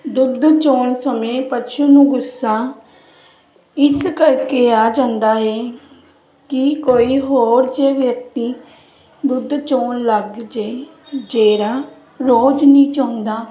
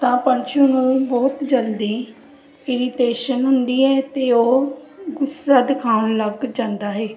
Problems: none marked